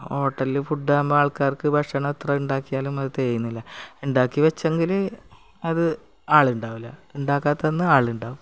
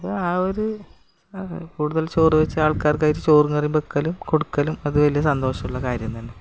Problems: none marked